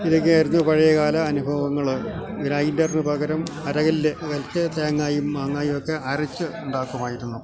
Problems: constant background noise, low volume